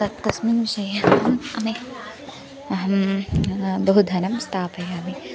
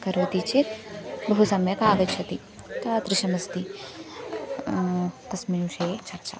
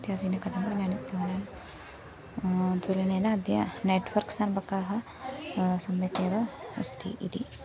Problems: none marked